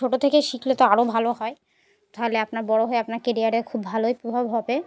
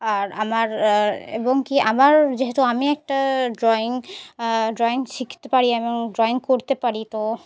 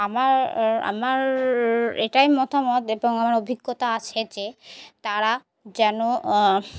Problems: constant background noise, background conversations at intervals